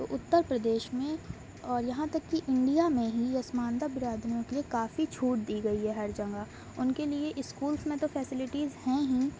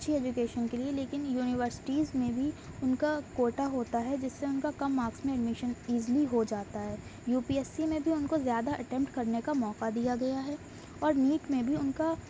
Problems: constant background noise